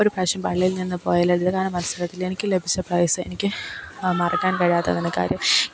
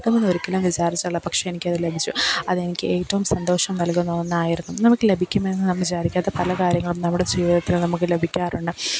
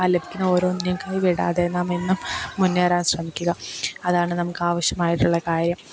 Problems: background sounds at intervals